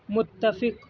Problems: background sounds at intervals, low volume